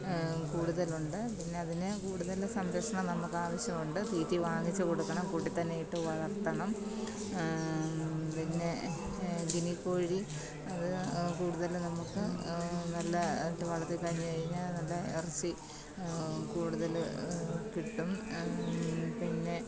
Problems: constant background noise, low volume